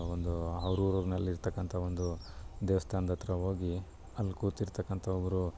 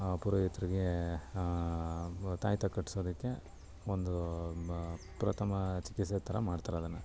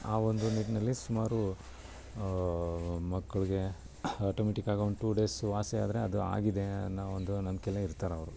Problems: none marked